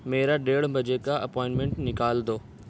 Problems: constant background noise